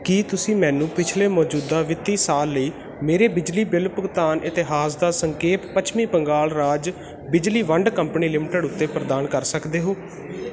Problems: constant background noise